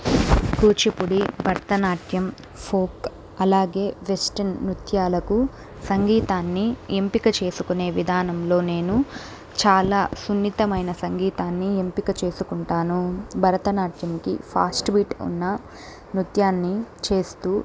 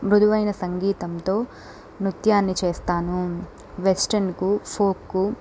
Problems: background sounds at intervals